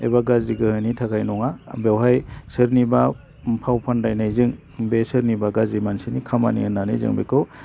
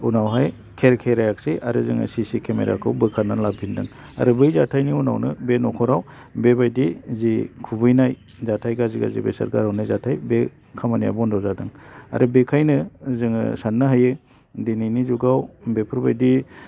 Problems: low volume